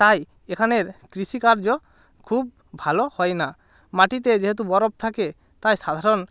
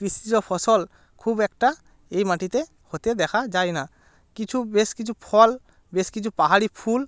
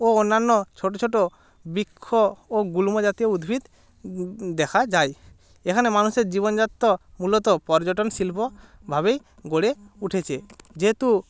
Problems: background sounds at intervals